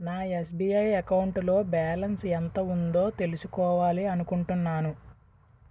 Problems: constant background noise